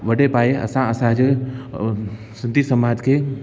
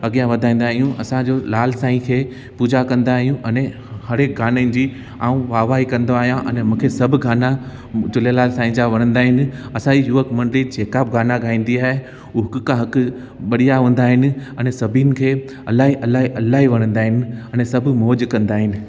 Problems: constant background noise, echo